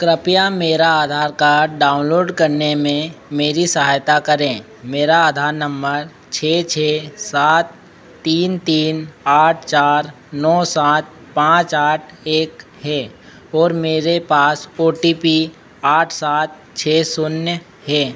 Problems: constant background noise